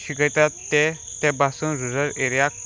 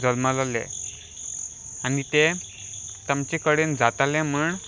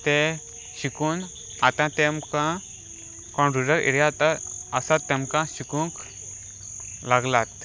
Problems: none marked